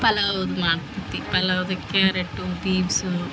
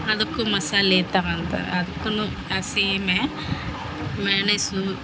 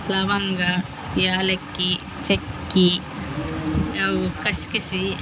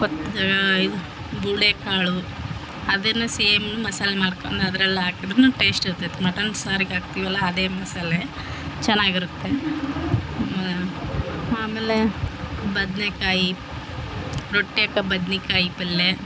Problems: background sounds at intervals